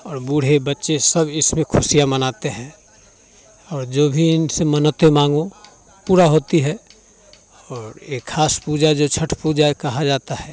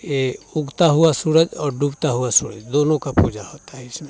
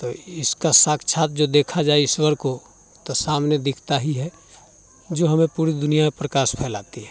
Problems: none marked